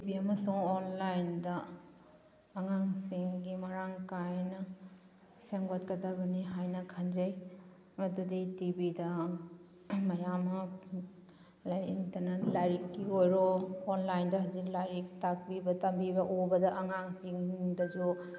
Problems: background sounds at intervals